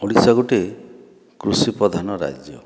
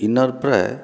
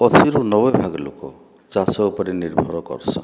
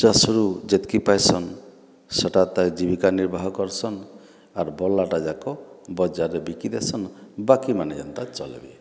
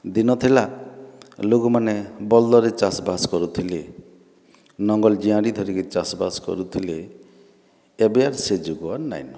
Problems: background sounds at intervals